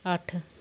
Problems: none marked